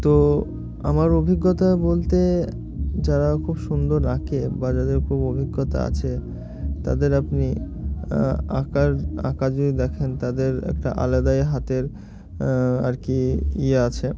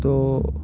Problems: constant background noise